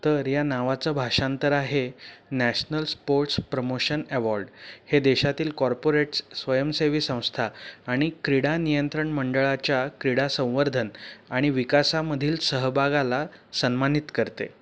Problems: none marked